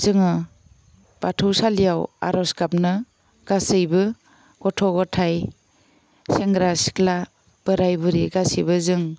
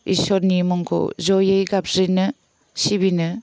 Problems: none marked